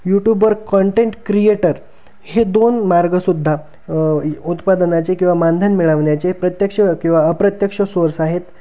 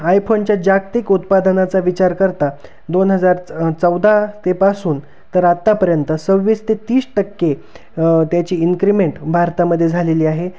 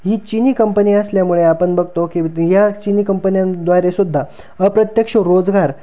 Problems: constant background noise